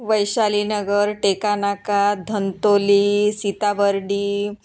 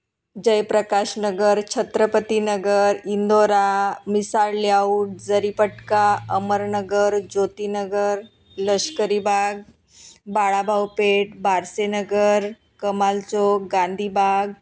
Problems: none marked